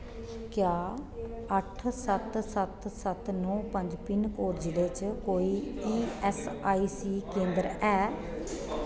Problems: constant background noise